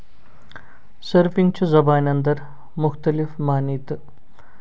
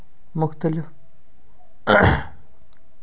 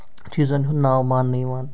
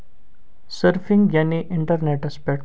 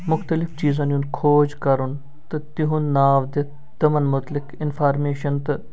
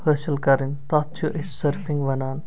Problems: background sounds at intervals